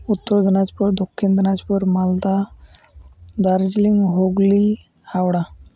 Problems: constant background noise